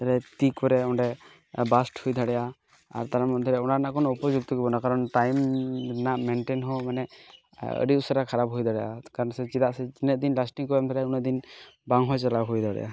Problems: none marked